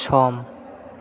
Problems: constant background noise